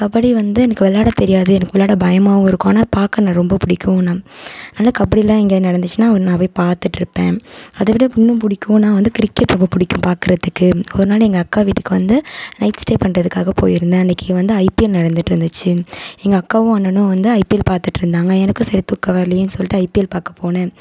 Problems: none marked